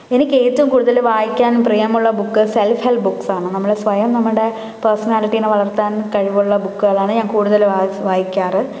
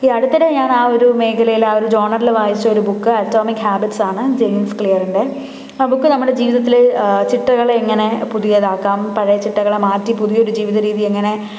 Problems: background sounds at intervals